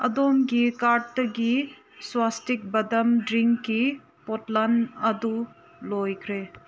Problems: background sounds at intervals